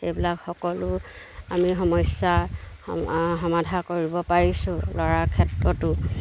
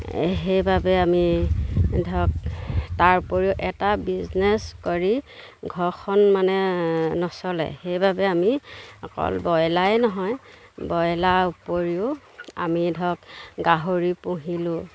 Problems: none marked